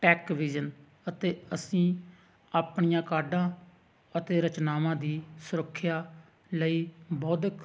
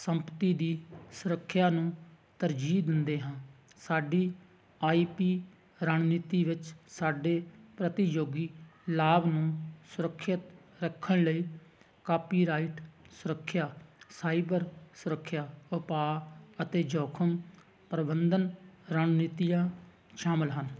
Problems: none marked